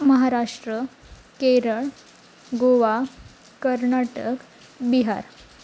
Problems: constant background noise